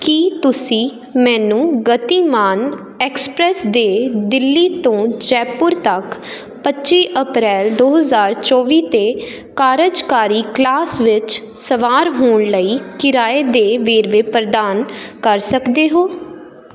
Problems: constant background noise